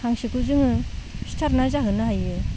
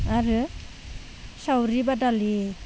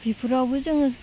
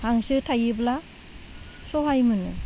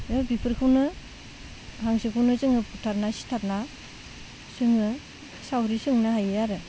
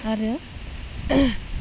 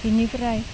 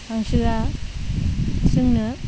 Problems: low volume